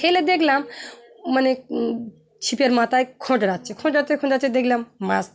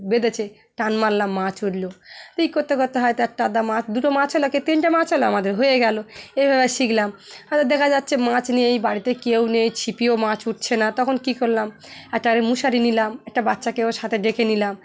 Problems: constant background noise, continuous background conversations